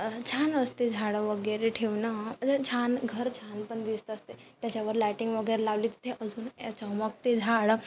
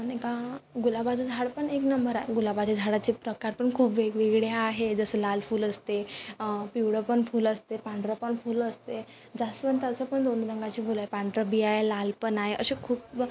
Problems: constant background noise